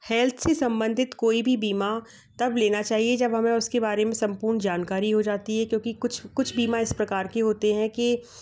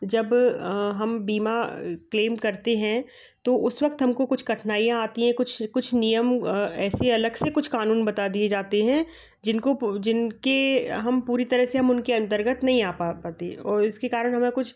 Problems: background sounds at intervals, background conversations at intervals